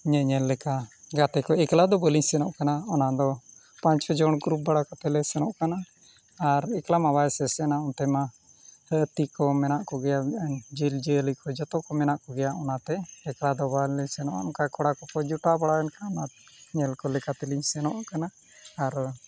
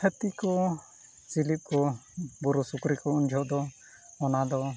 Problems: none marked